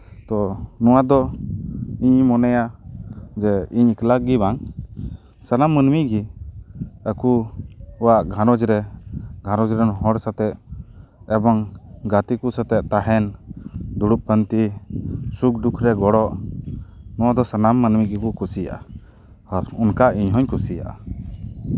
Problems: constant background noise